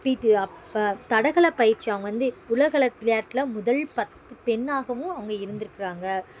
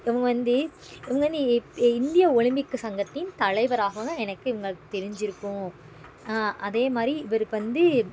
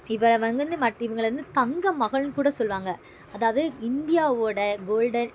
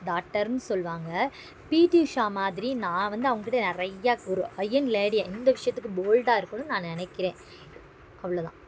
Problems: background sounds at intervals